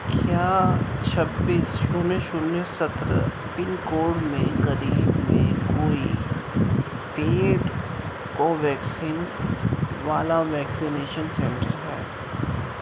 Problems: constant background noise, low volume